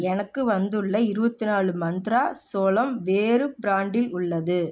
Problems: none marked